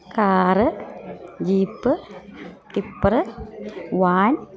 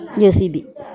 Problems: continuous background conversations